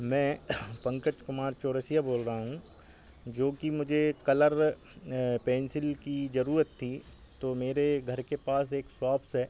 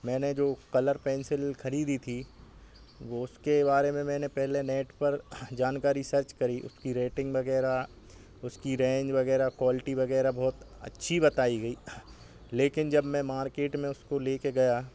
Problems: background sounds at intervals